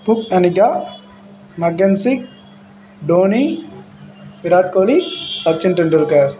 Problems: background sounds at intervals